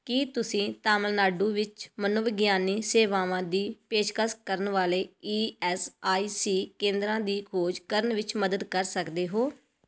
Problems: none marked